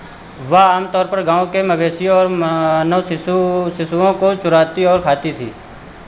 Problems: constant background noise, echo